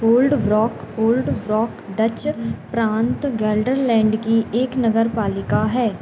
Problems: none marked